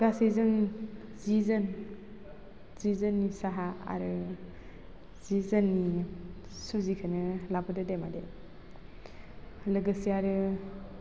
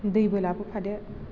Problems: constant background noise